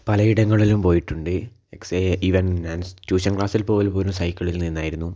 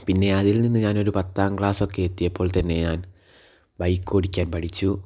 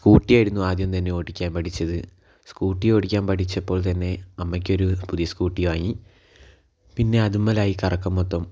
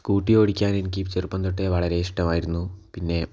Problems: none marked